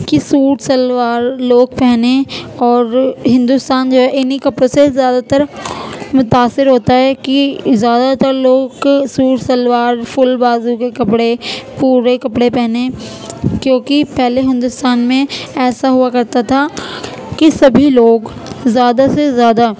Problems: constant background noise